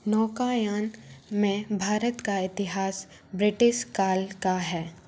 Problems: background sounds at intervals